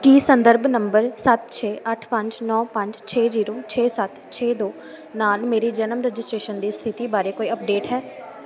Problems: constant background noise